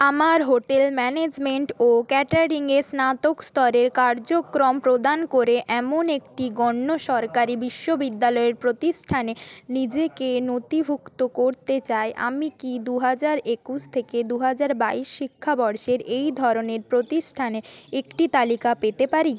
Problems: background conversations at intervals